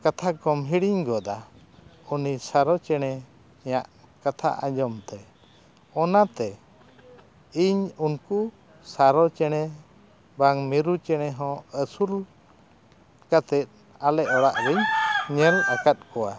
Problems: none marked